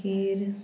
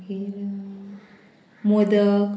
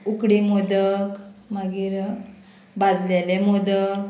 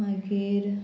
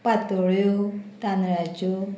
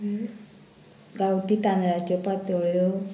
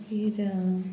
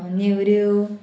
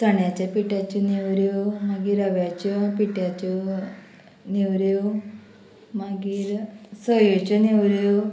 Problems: constant background noise